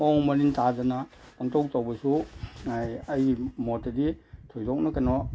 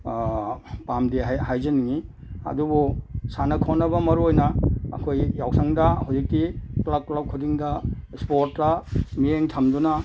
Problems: background sounds at intervals